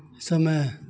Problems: constant background noise